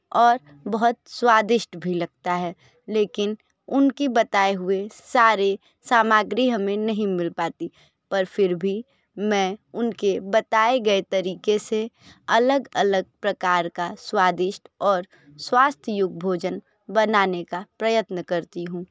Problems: background sounds at intervals